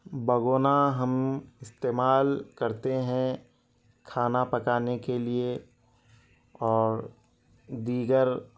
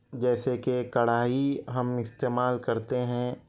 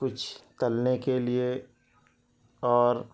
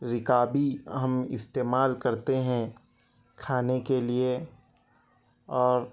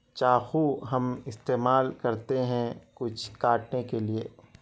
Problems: none marked